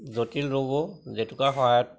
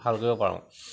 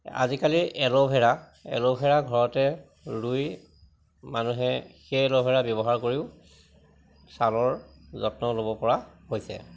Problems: constant background noise